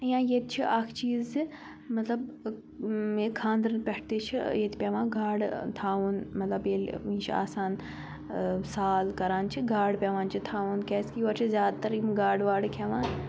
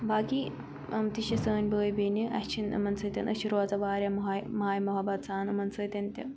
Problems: background sounds at intervals